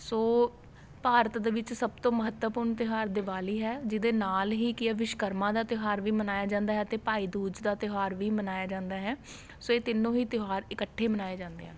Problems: constant background noise